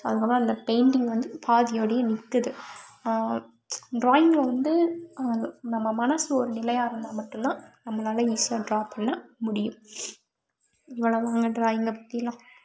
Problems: background sounds at intervals